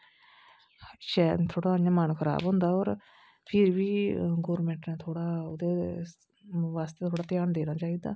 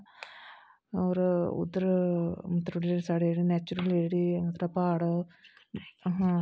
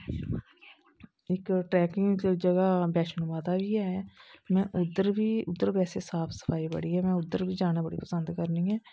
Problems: constant background noise